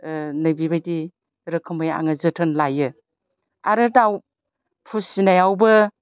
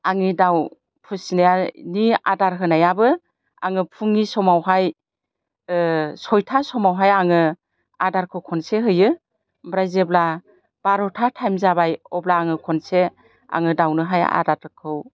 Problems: constant background noise